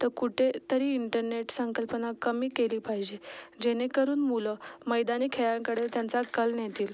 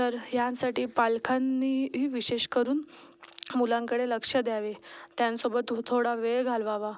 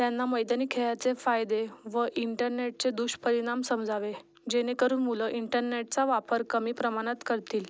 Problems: none marked